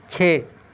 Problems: constant background noise